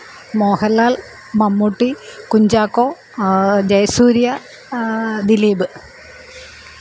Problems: none marked